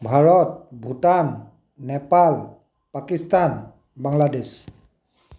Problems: none marked